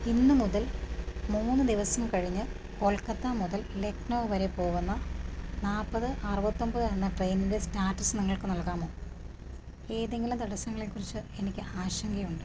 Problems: none marked